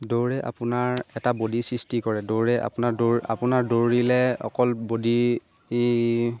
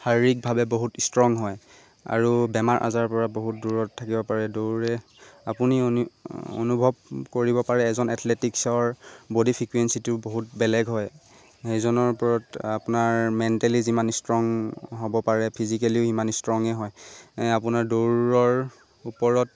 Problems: constant background noise